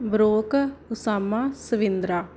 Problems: background sounds at intervals